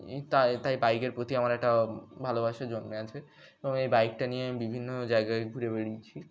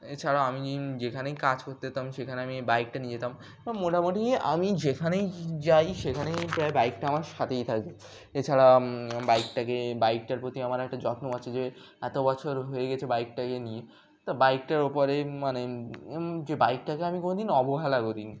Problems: background sounds at intervals